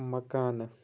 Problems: background sounds at intervals